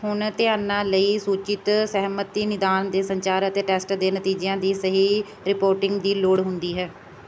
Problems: constant background noise